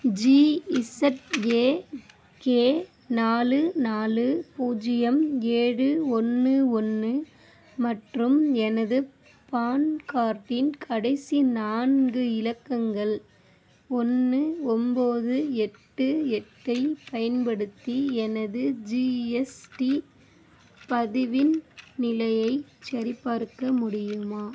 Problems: none marked